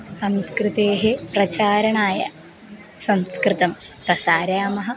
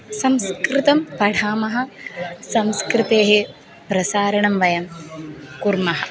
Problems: background sounds at intervals